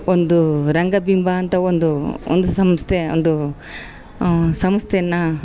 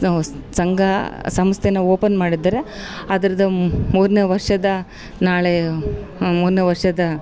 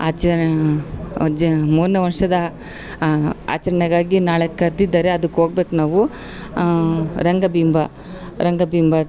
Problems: none marked